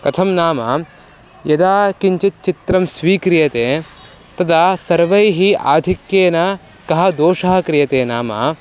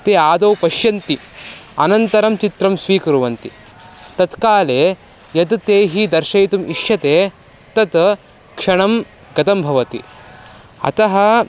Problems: constant background noise, background conversations at intervals